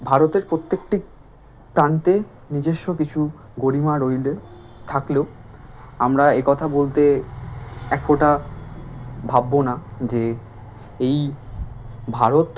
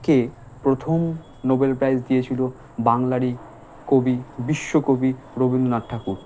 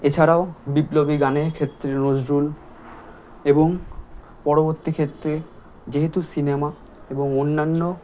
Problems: none marked